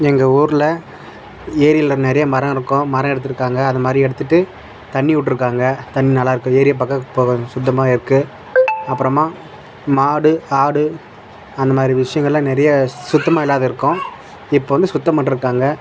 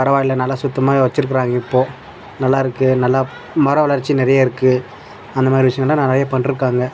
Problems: constant background noise, background conversations at intervals